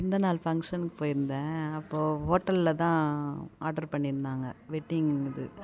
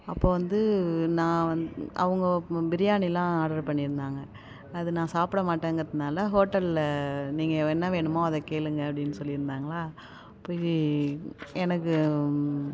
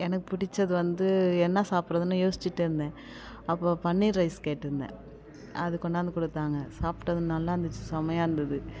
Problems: none marked